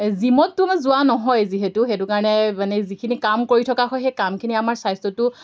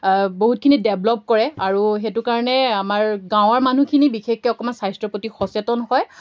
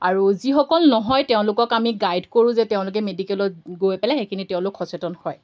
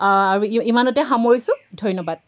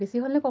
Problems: background sounds at intervals